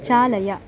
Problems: background conversations at intervals